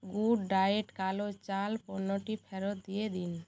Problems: none marked